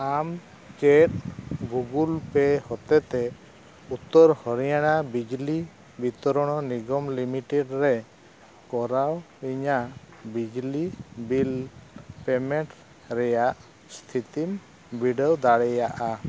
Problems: none marked